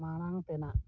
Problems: low volume